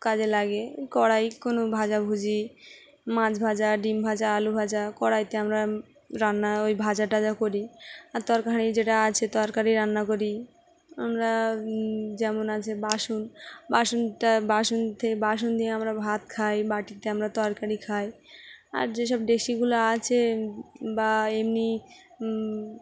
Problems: background sounds at intervals, background conversations at intervals